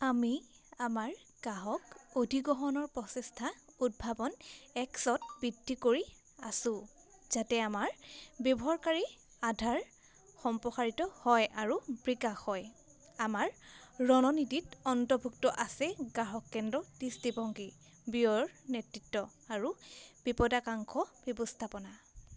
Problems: constant background noise